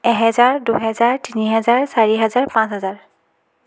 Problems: continuous background conversations